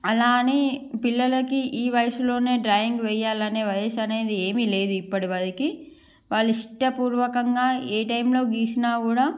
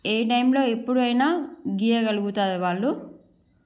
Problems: background sounds at intervals